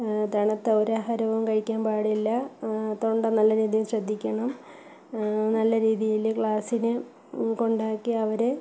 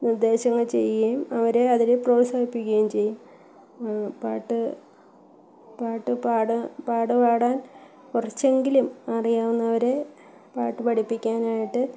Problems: background sounds at intervals, low volume